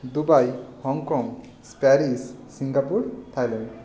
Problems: none marked